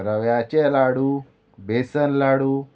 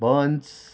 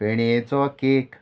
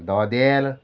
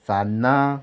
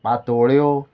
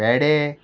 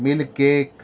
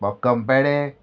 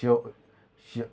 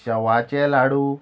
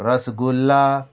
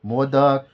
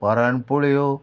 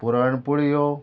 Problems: none marked